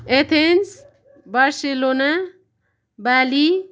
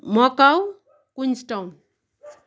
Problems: constant background noise